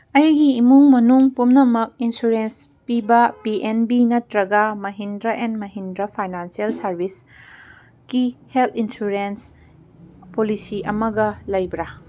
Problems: none marked